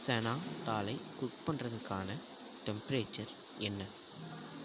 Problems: low volume